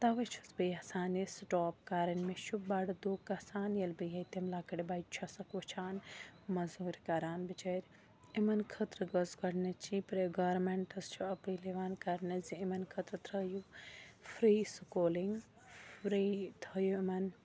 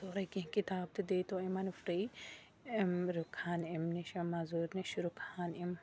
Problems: constant background noise, low volume